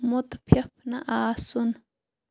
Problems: none marked